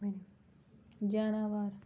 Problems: none marked